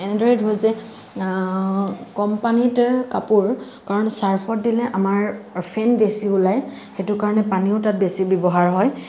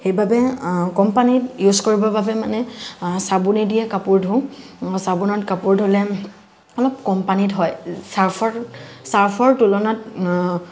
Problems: constant background noise